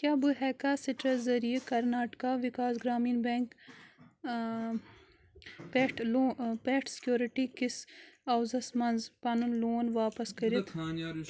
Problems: background conversations at intervals